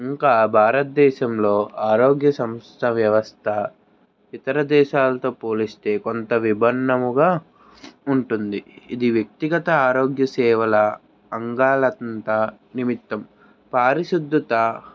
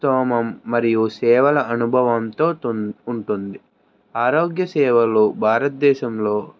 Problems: background sounds at intervals